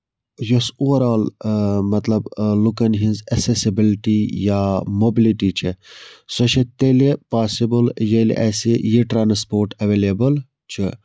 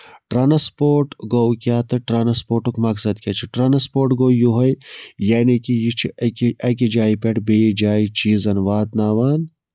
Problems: background sounds at intervals